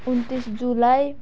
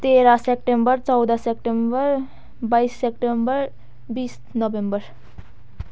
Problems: background sounds at intervals